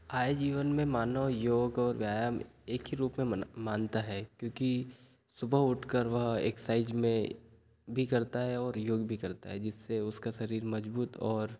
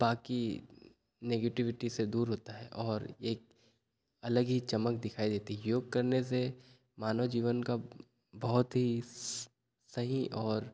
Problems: none marked